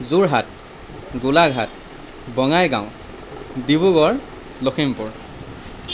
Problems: constant background noise